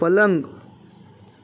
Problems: constant background noise